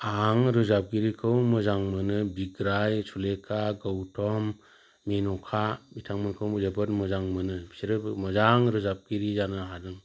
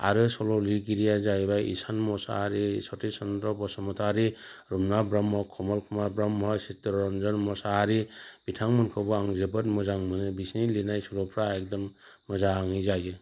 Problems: constant background noise